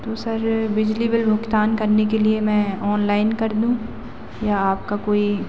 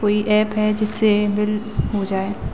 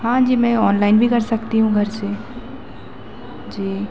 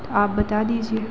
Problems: none marked